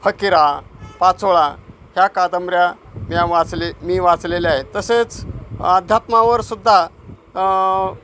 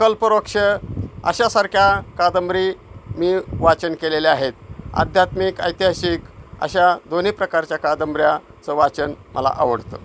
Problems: constant background noise